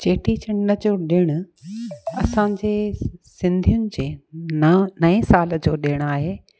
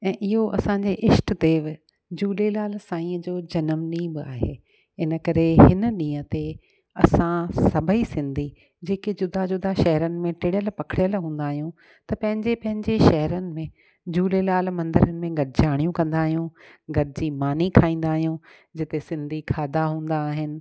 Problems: none marked